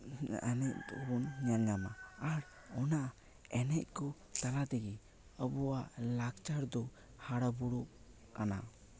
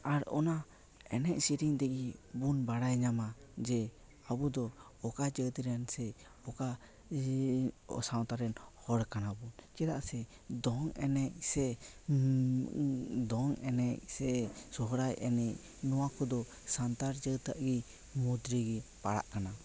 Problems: none marked